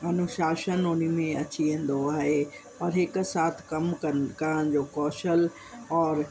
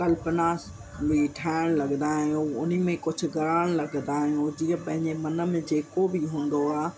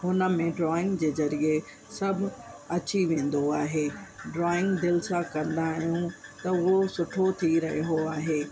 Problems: constant background noise